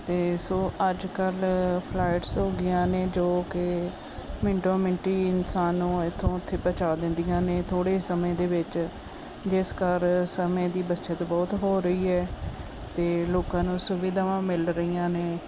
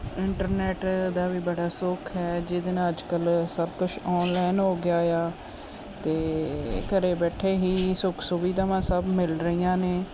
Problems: constant background noise